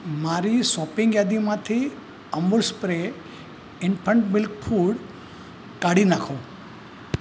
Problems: constant background noise